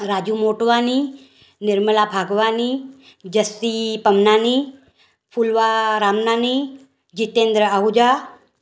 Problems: none marked